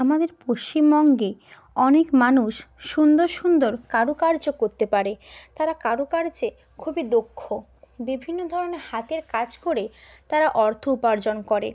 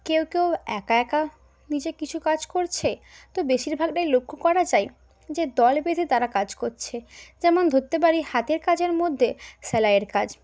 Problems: none marked